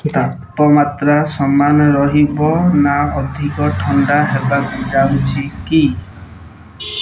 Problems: background sounds at intervals